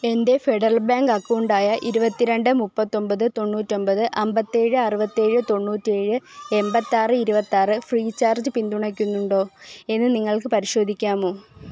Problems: low volume